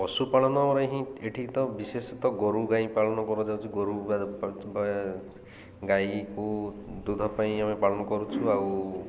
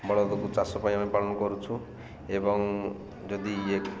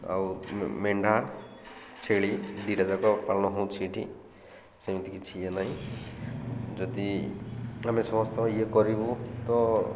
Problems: constant background noise